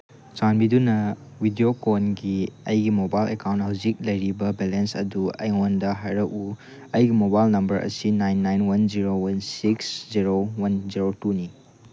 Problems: none marked